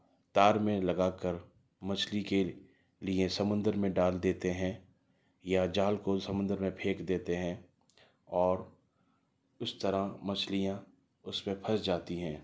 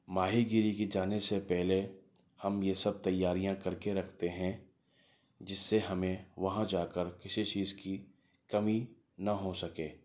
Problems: none marked